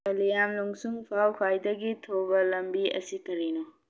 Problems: low volume